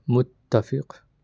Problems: none marked